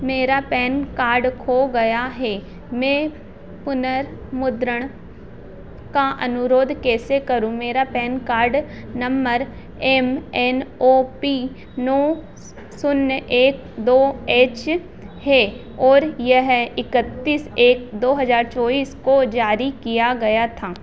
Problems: none marked